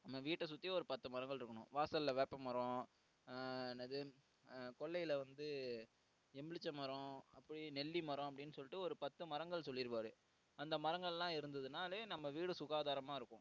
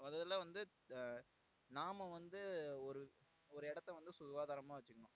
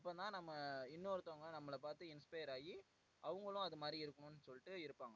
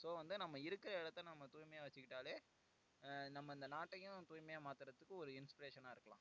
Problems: low volume